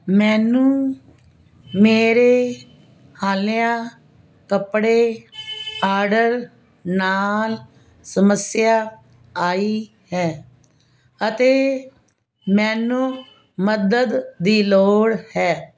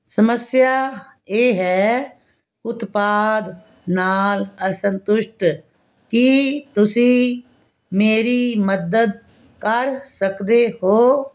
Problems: none marked